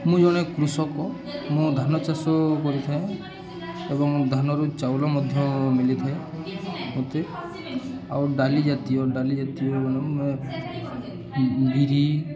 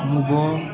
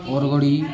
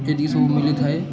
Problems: constant background noise, continuous background conversations